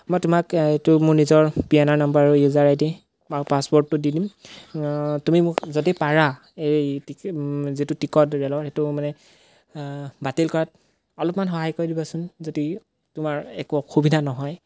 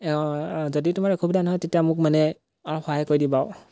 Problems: background sounds at intervals